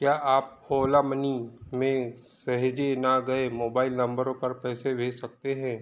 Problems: background sounds at intervals